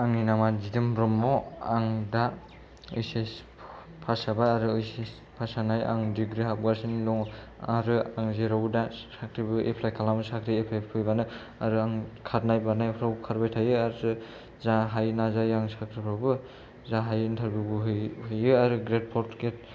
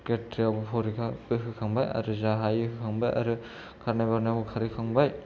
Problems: low volume